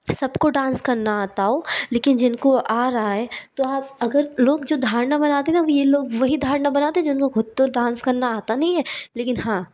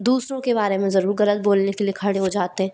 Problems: background sounds at intervals